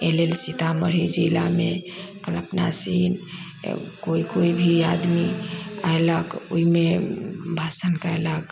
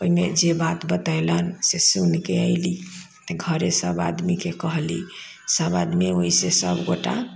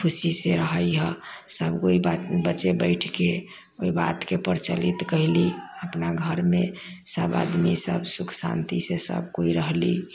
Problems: background sounds at intervals